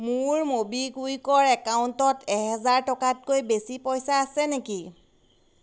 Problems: constant background noise